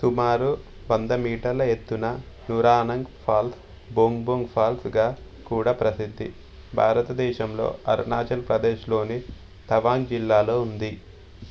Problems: constant background noise